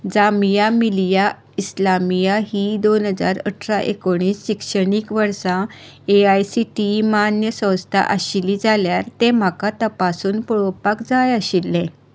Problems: none marked